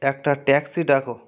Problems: constant background noise